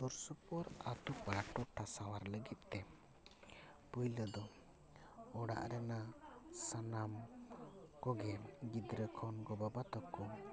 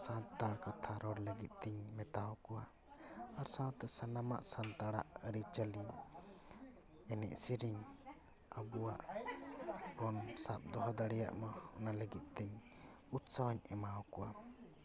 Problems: continuous background conversations